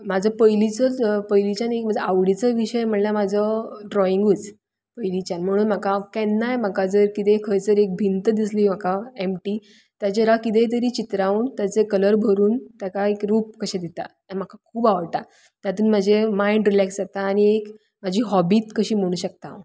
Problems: none marked